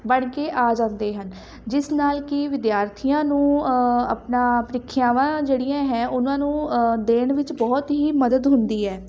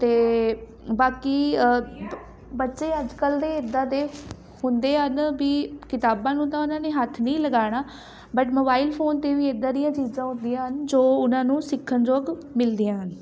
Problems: background conversations at intervals